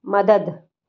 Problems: none marked